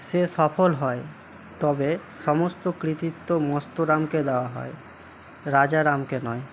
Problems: none marked